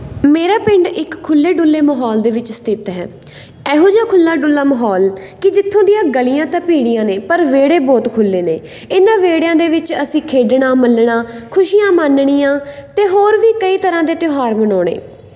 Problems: background sounds at intervals